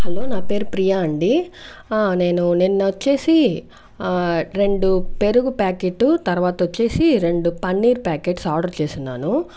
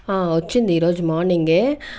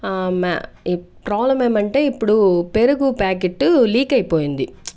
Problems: background sounds at intervals